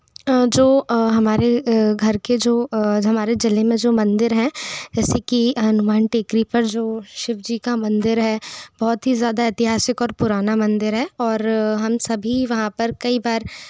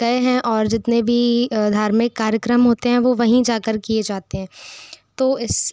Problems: none marked